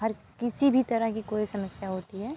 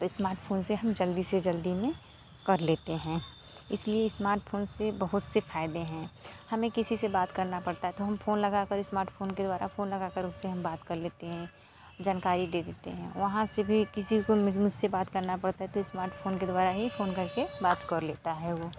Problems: background sounds at intervals